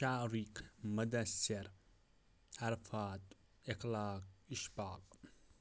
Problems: none marked